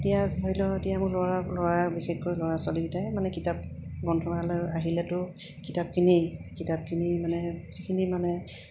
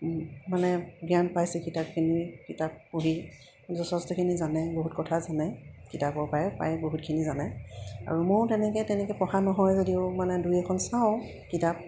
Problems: background sounds at intervals